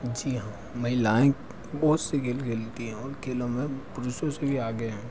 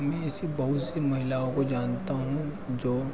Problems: constant background noise, background conversations at intervals